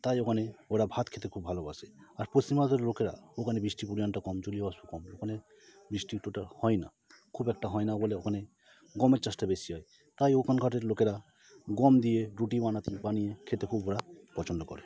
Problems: constant background noise